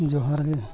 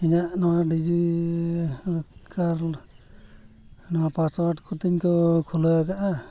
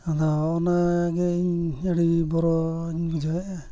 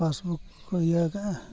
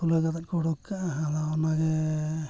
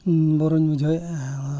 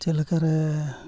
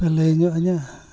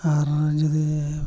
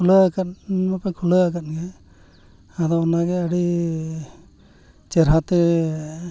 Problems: background sounds at intervals, background conversations at intervals